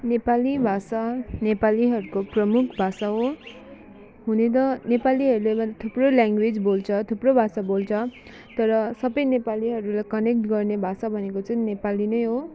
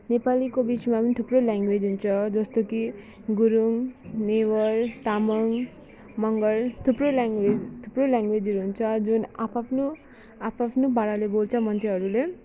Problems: constant background noise